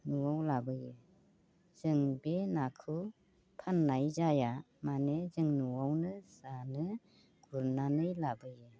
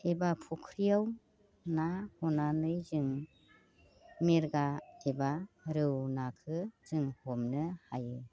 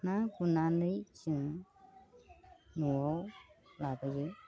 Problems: constant background noise